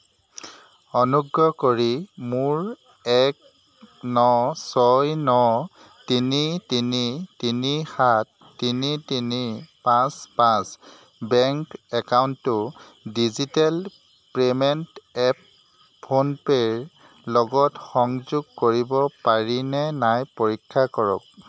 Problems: constant background noise